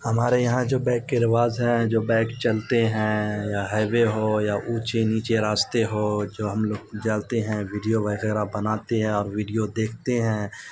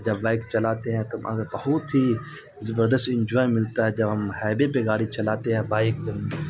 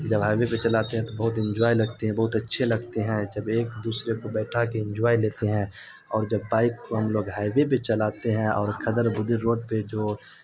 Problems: constant background noise